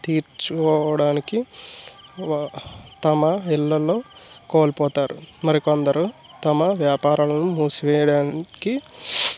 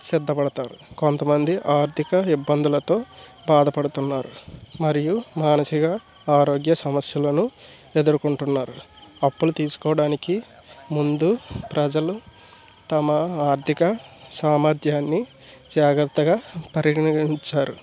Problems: none marked